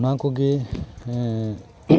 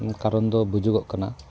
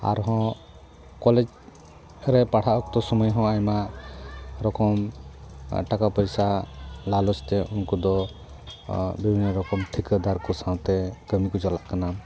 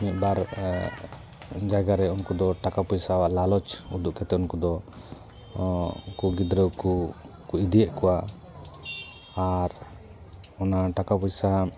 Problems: background sounds at intervals